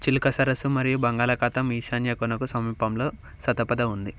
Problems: background sounds at intervals